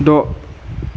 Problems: constant background noise